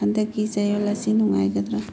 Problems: low volume